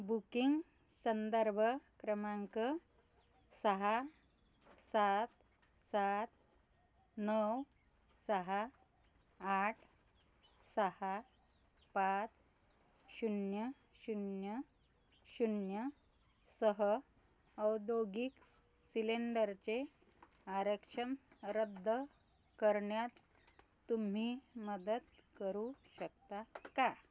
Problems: background sounds at intervals